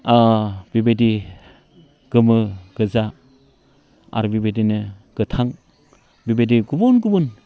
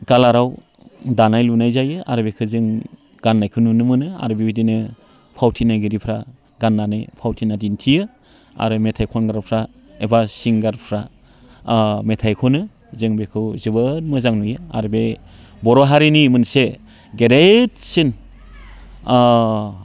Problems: none marked